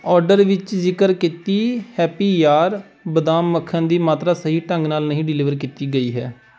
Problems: background sounds at intervals